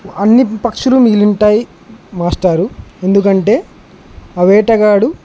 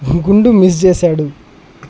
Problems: none marked